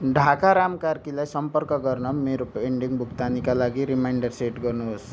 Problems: none marked